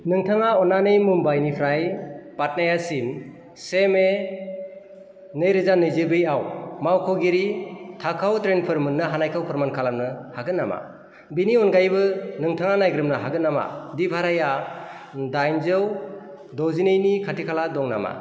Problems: constant background noise